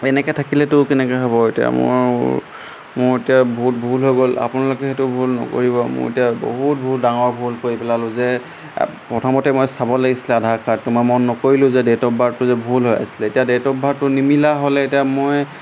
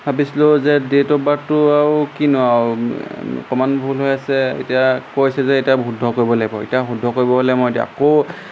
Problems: constant background noise